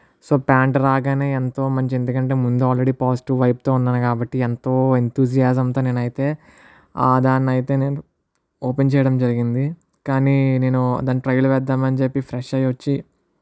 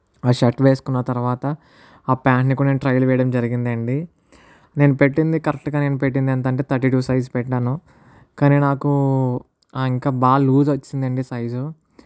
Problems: none marked